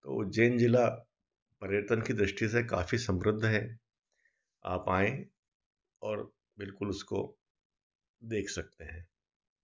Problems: none marked